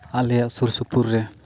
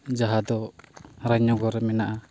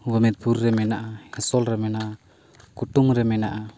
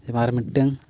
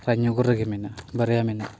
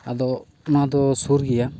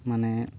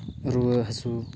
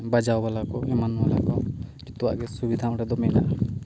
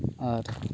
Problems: background sounds at intervals